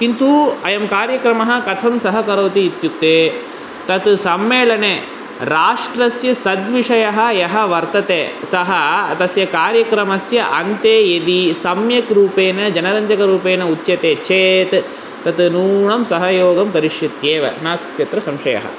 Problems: none marked